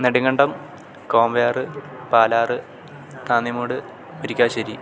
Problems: constant background noise